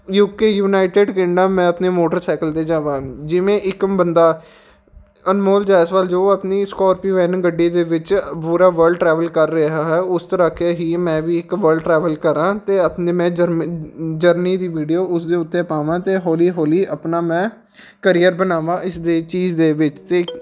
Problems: background sounds at intervals